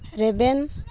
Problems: constant background noise